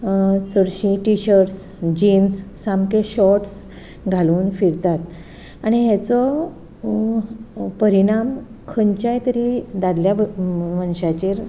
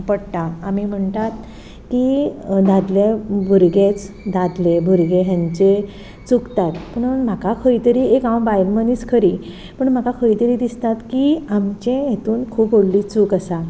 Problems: none marked